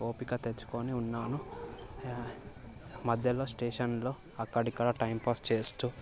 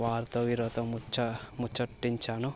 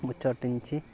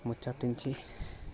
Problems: constant background noise